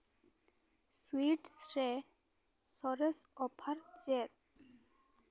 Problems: background conversations at intervals